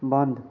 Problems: none marked